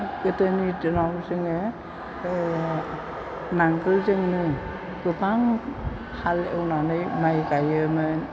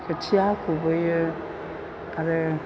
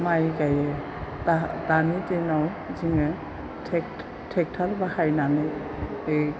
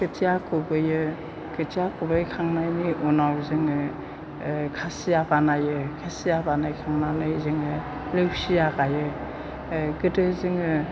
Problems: low volume